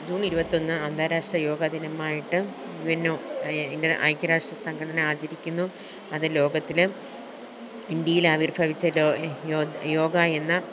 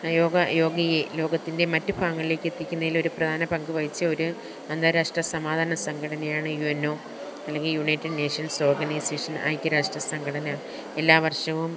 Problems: background sounds at intervals